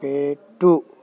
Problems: constant background noise